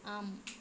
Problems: low volume